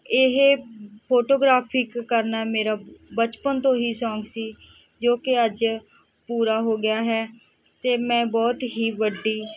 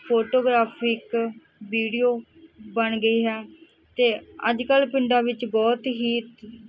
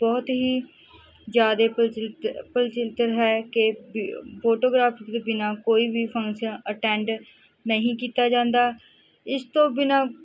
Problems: background conversations at intervals